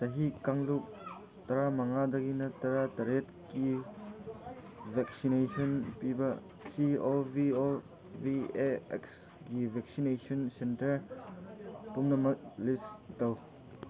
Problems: background conversations at intervals